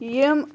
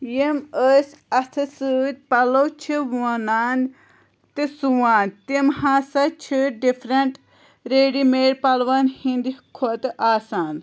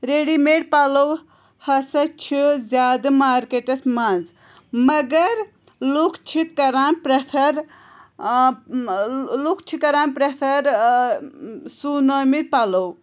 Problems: constant background noise